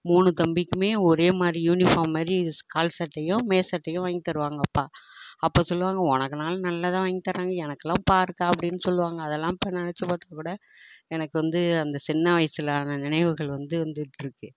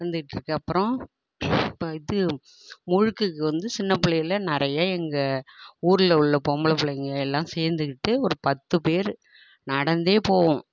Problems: none marked